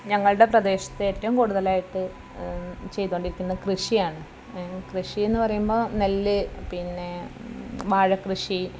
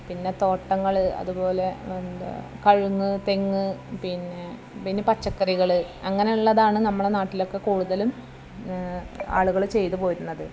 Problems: low volume